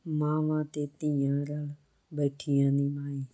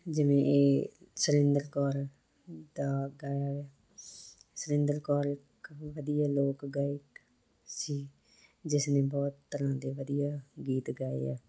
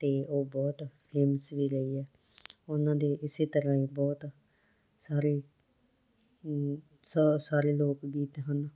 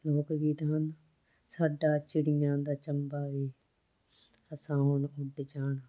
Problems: constant background noise